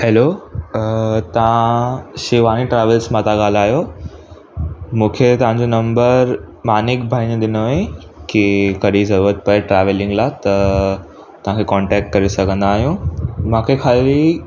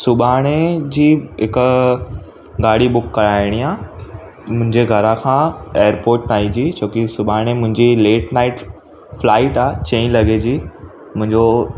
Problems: constant background noise, echo